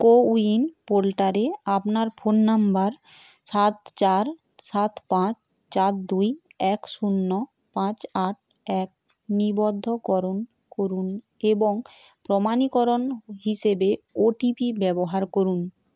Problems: constant background noise